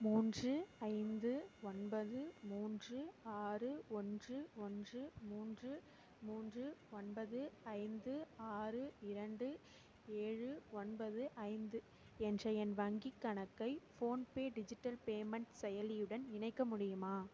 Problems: low volume